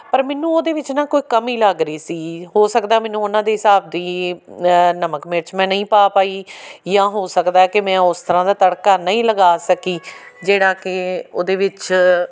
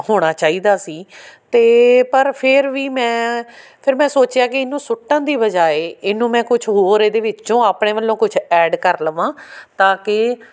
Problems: none marked